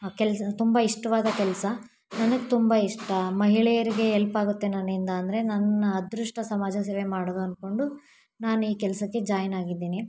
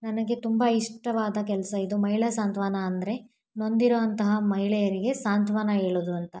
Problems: background sounds at intervals